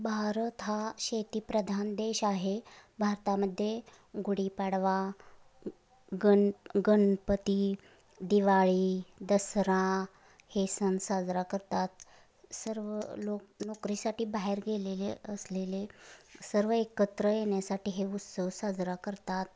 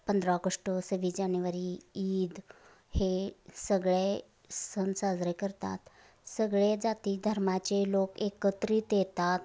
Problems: constant background noise